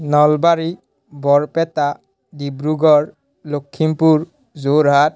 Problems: none marked